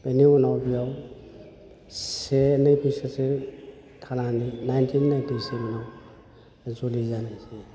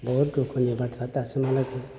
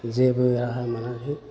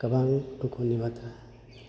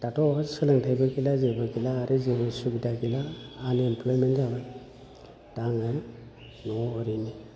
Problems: low volume